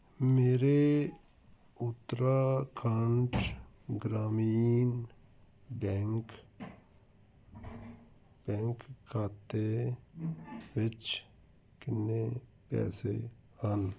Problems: none marked